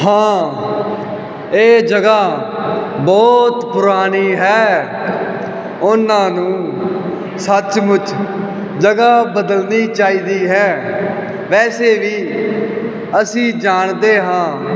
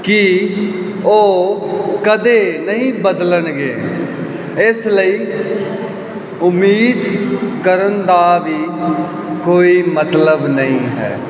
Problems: none marked